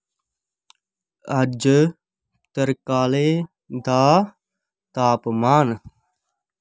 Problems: none marked